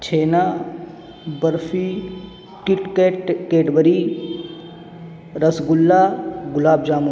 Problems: constant background noise